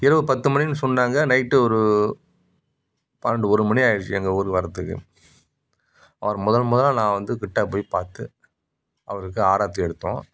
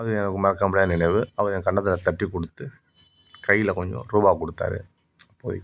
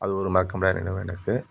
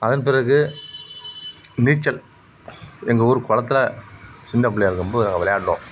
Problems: none marked